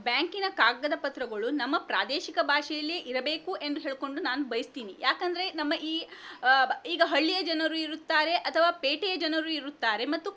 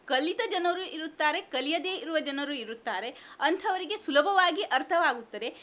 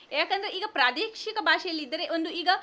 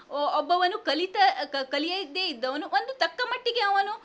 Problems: none marked